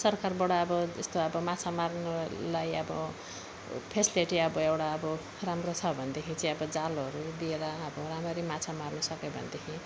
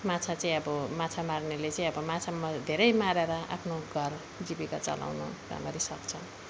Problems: background sounds at intervals